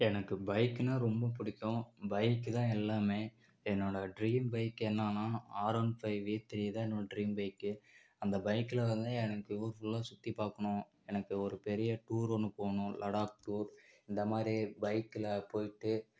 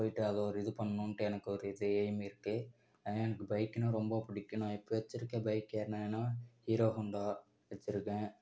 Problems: none marked